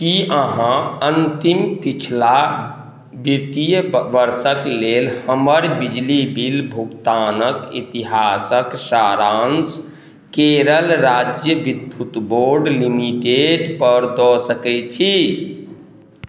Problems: none marked